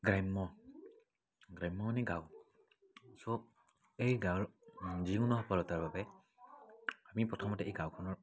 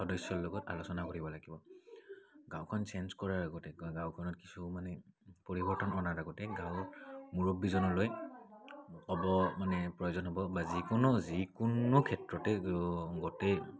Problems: background sounds at intervals, background conversations at intervals